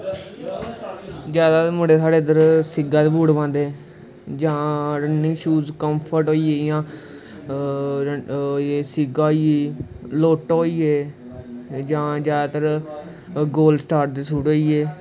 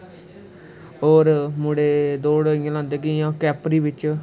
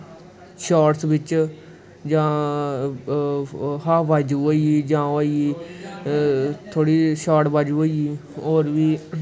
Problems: constant background noise